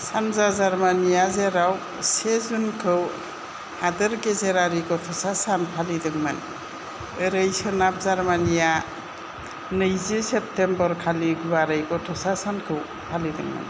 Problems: constant background noise